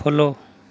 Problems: none marked